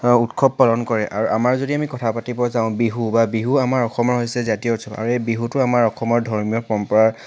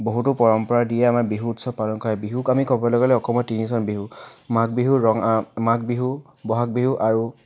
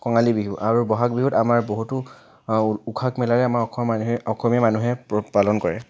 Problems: background sounds at intervals